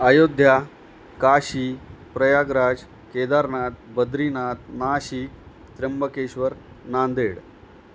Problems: constant background noise